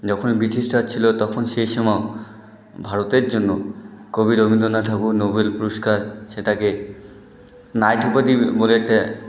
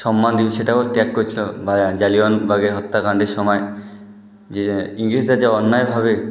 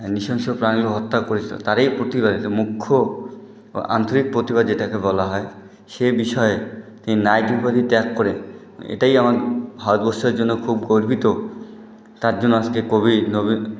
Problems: constant background noise